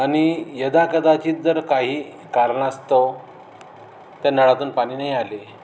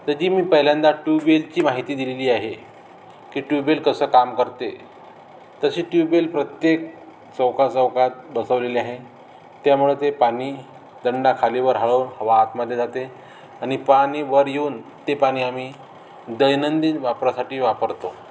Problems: none marked